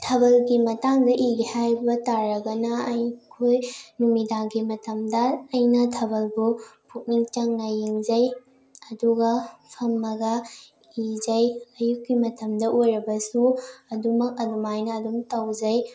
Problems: none marked